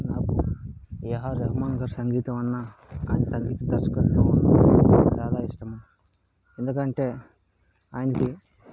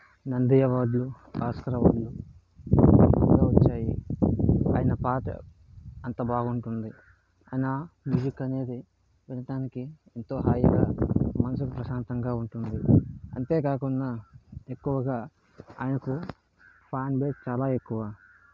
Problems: constant background noise